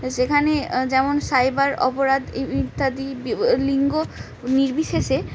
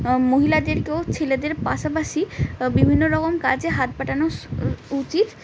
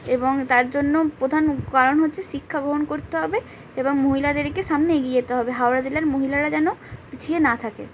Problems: none marked